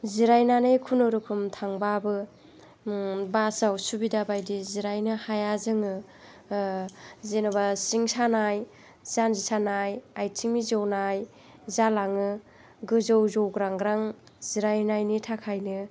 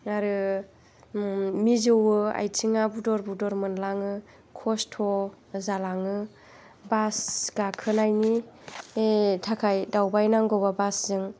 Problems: none marked